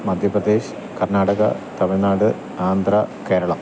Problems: constant background noise